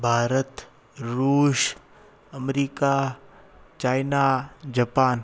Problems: constant background noise